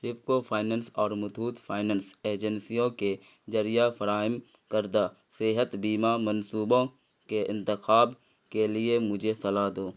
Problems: none marked